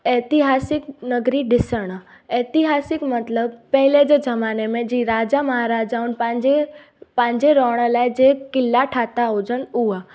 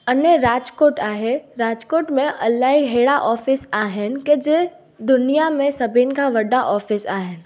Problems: none marked